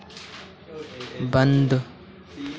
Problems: none marked